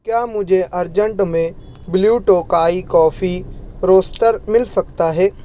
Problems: none marked